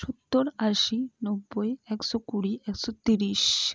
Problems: low volume